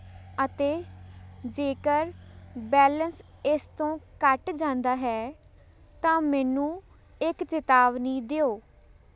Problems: none marked